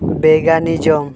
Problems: constant background noise